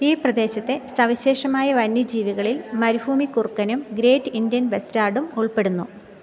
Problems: background sounds at intervals